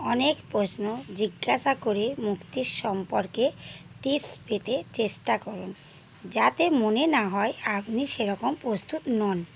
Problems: constant background noise